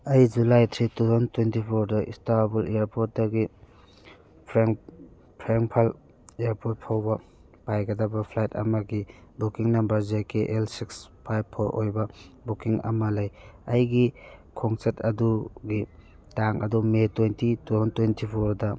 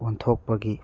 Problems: background conversations at intervals